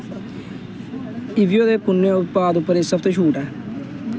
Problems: constant background noise